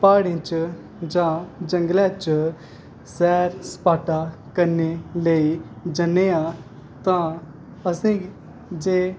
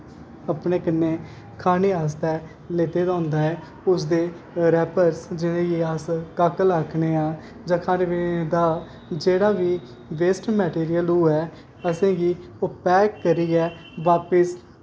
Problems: constant background noise